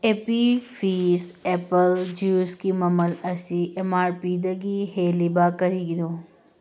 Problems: background sounds at intervals